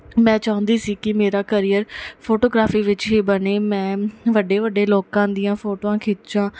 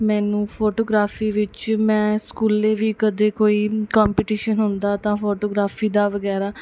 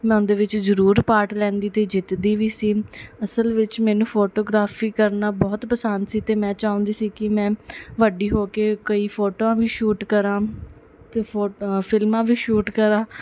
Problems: none marked